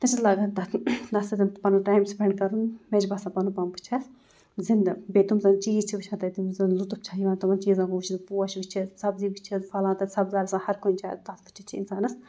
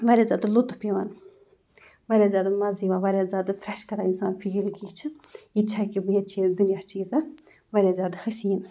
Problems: none marked